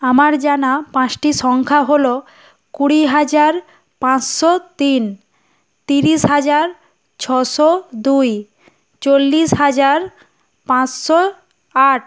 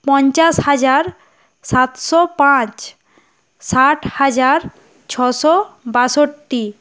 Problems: none marked